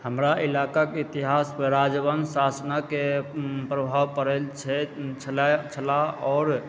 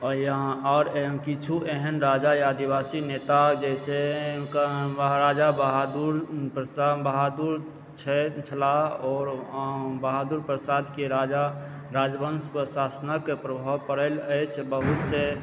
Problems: background sounds at intervals